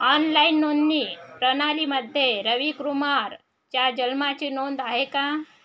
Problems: constant background noise, background conversations at intervals